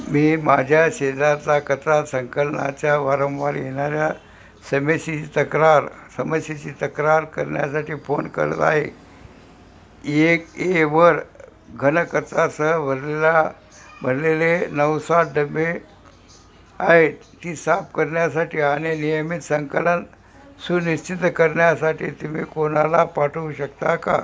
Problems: none marked